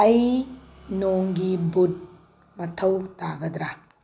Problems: low volume